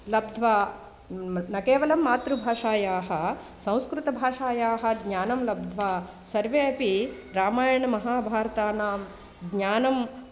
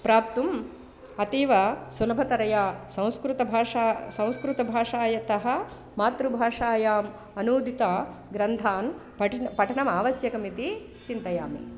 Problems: constant background noise